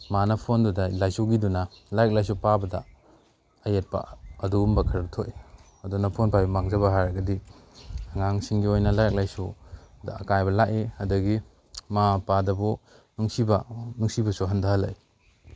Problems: background sounds at intervals